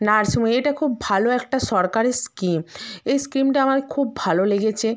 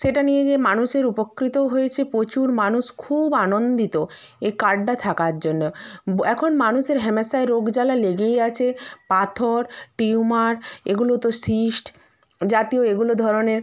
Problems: background sounds at intervals